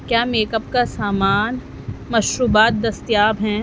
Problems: constant background noise